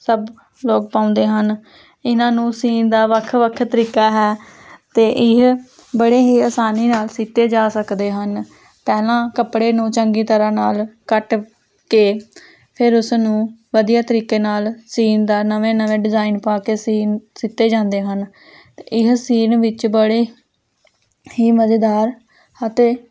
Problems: constant background noise